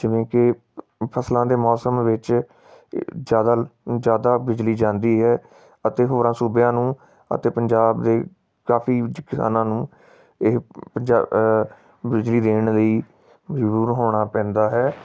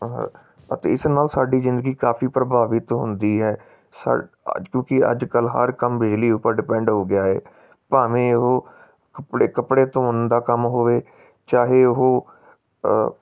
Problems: none marked